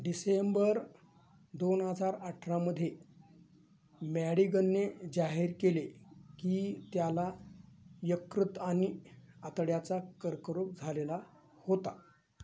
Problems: none marked